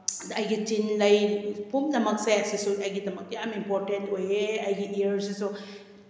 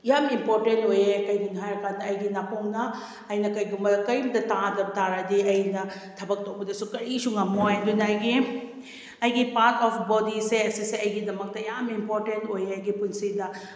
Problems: none marked